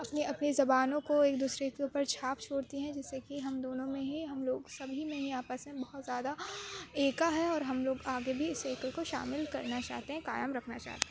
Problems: constant background noise, low volume